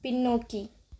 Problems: none marked